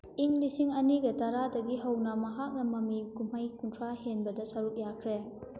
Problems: background sounds at intervals